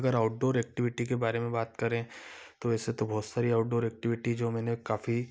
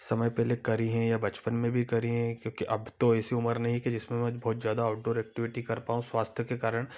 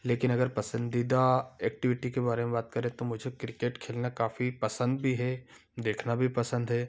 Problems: none marked